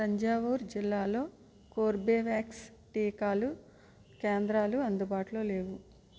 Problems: low volume